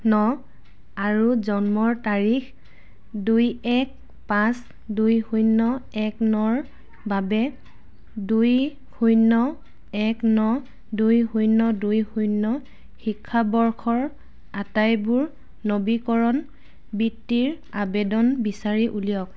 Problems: background sounds at intervals